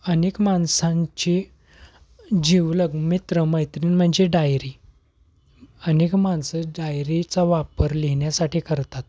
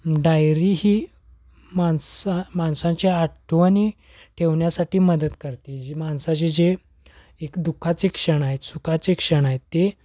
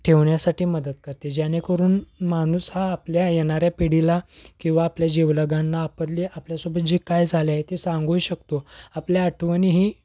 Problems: background sounds at intervals